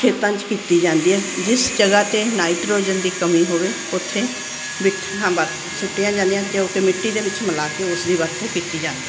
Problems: none marked